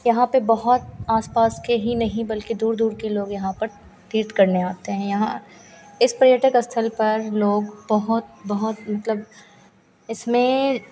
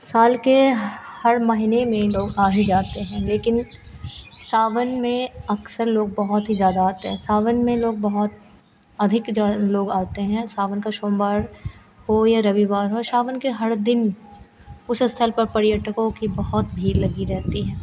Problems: constant background noise